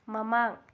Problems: low volume